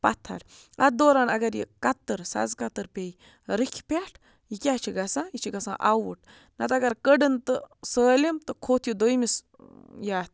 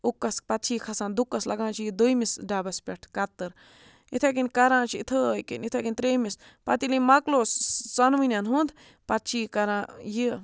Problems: background sounds at intervals